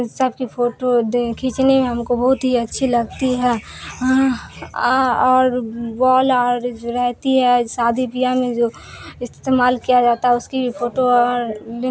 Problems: constant background noise